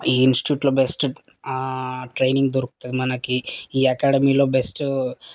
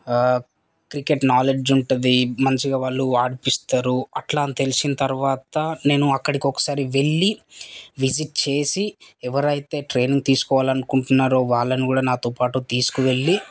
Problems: constant background noise, background conversations at intervals